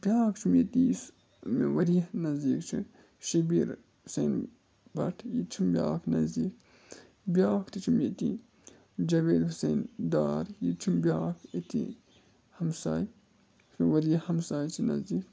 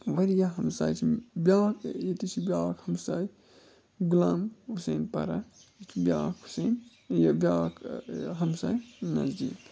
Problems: constant background noise, low volume